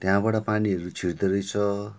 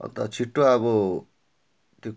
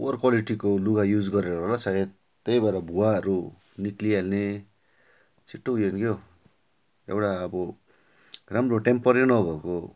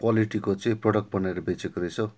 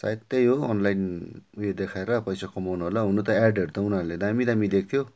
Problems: none marked